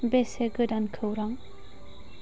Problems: constant background noise